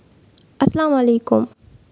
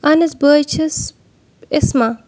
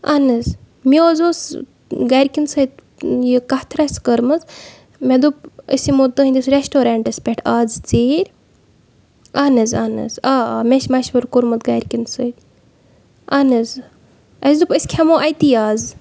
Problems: background sounds at intervals